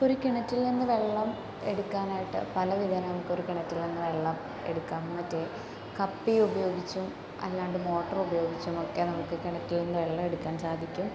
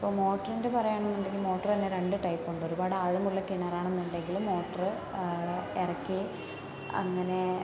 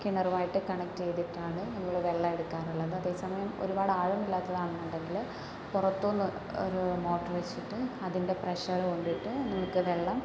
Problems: background sounds at intervals, low volume